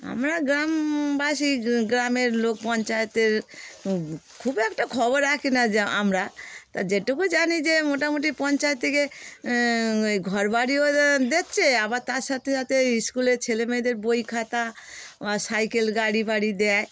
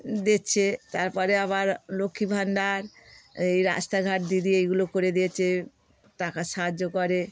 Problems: constant background noise